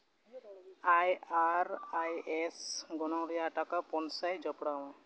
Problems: background sounds at intervals